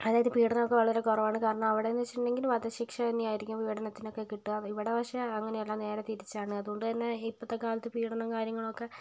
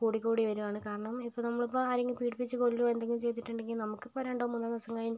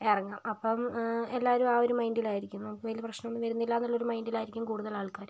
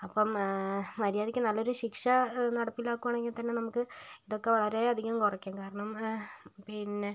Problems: none marked